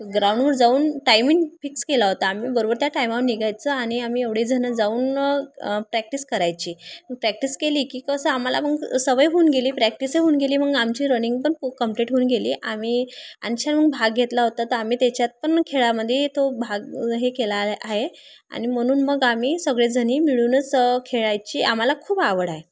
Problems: none marked